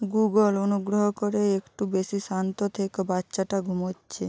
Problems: none marked